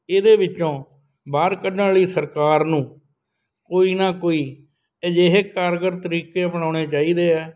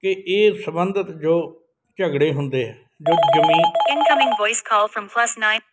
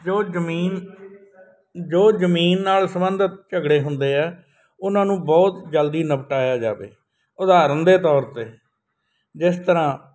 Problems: none marked